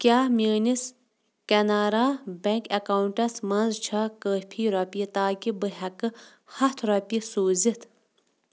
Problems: none marked